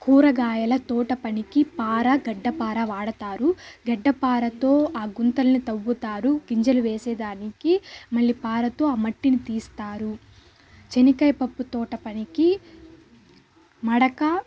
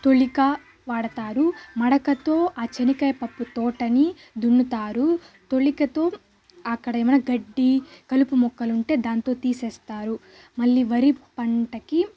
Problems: constant background noise